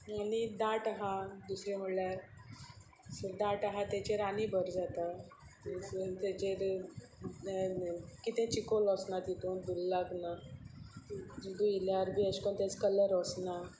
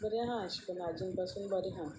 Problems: constant background noise